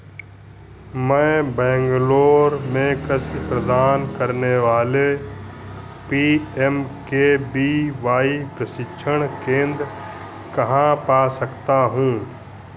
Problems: constant background noise